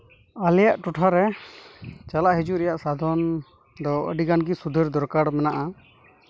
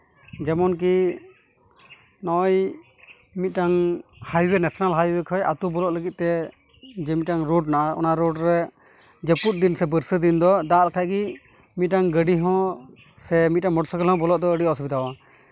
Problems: none marked